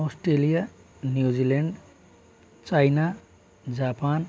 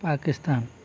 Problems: constant background noise